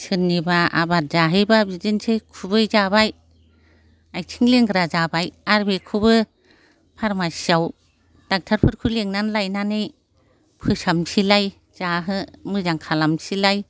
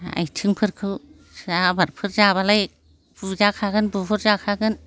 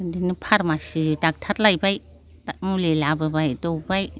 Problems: constant background noise